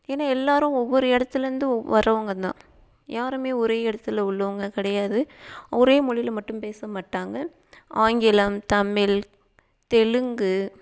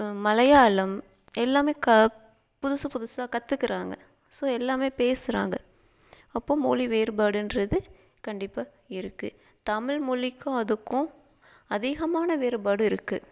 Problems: none marked